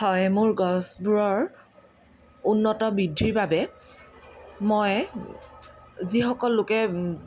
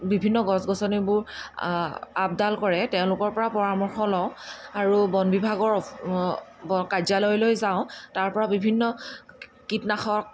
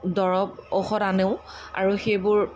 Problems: constant background noise